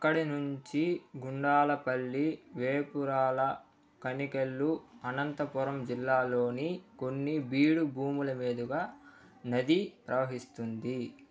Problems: low volume